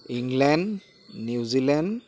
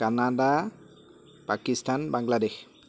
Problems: background conversations at intervals